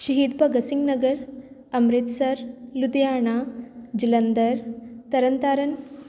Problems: none marked